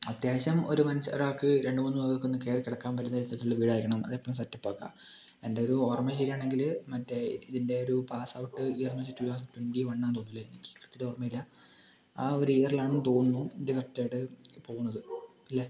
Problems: low volume